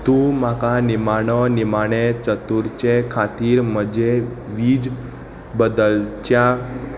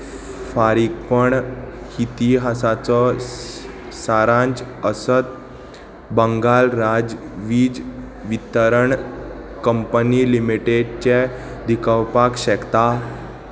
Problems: constant background noise